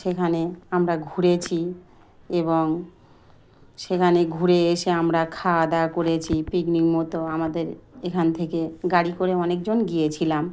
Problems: none marked